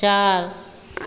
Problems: constant background noise, echo